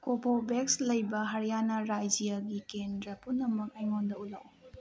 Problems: background sounds at intervals